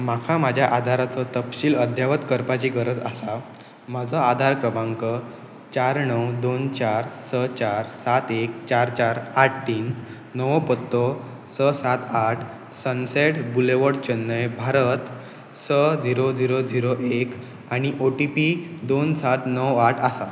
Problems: background sounds at intervals